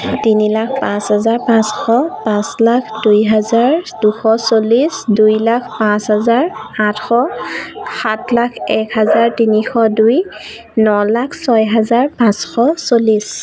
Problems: none marked